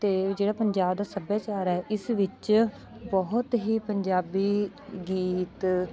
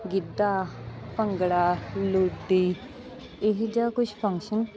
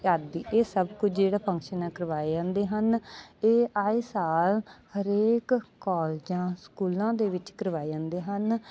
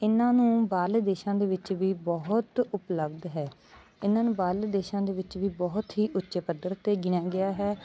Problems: background sounds at intervals, background conversations at intervals